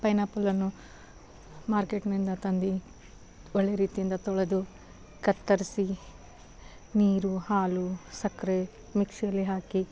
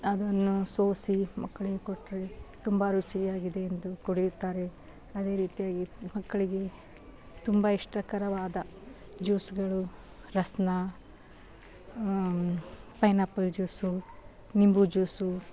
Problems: background sounds at intervals